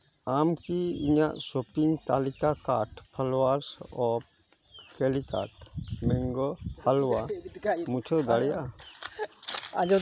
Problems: background sounds at intervals, background conversations at intervals